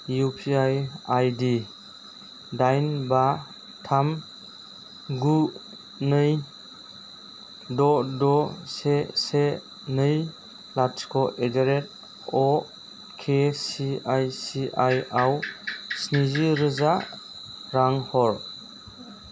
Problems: constant background noise